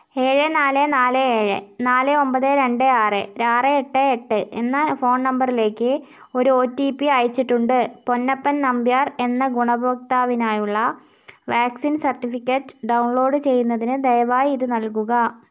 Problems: none marked